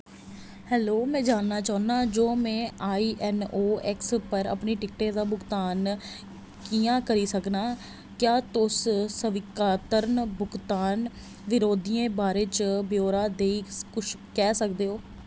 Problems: constant background noise